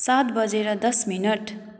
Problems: none marked